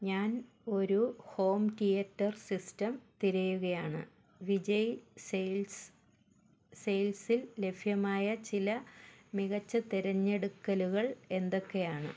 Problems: background sounds at intervals